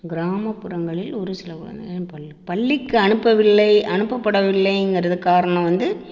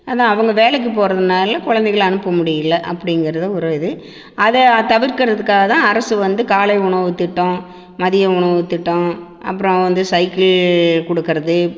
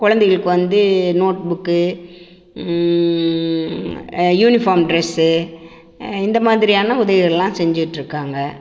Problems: constant background noise, echo